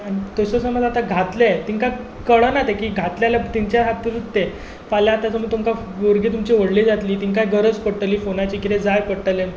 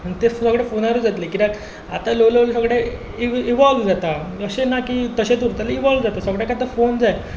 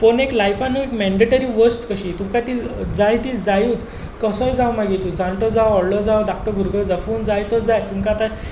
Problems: background sounds at intervals